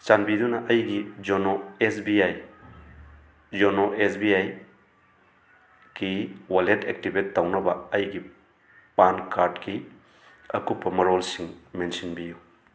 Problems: constant background noise